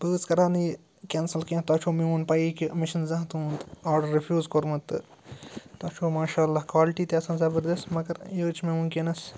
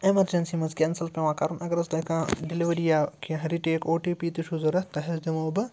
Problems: none marked